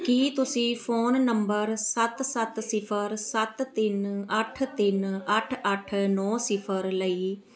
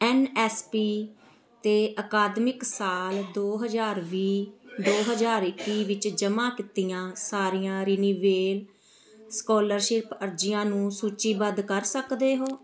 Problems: continuous background conversations